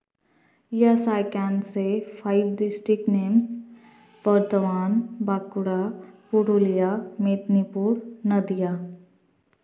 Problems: background sounds at intervals, echo